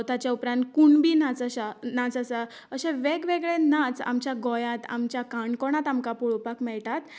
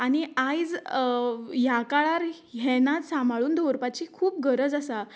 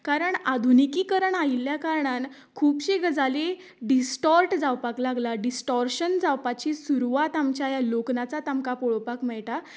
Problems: none marked